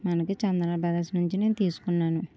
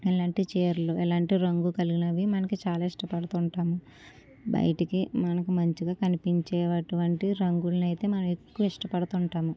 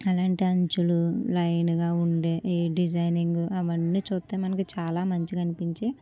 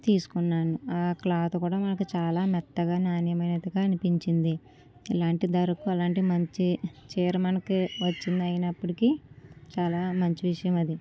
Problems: low volume